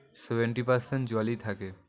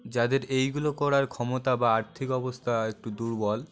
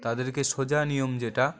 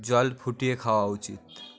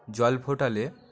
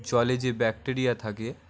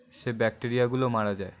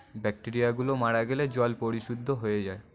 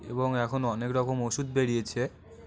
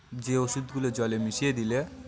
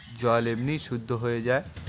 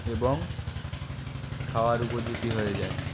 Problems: constant background noise, continuous background conversations